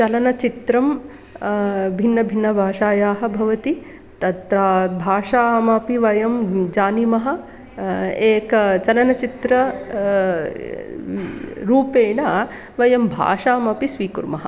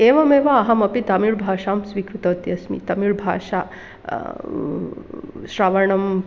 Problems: none marked